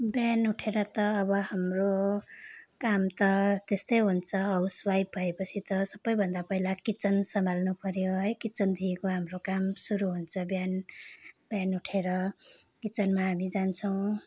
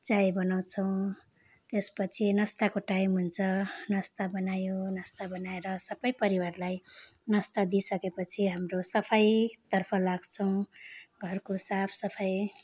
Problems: background sounds at intervals